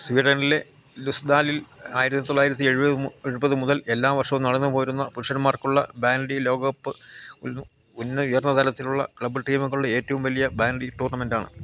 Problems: constant background noise, low volume